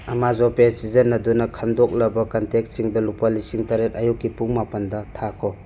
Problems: none marked